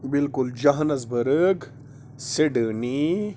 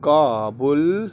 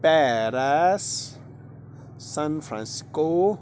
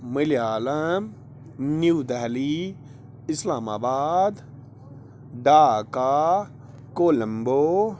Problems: constant background noise